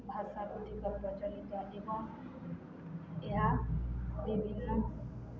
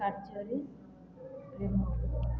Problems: constant background noise